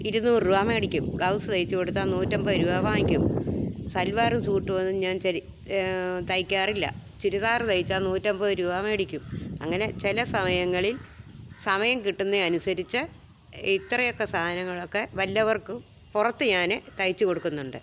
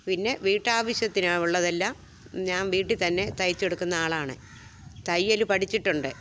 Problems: background sounds at intervals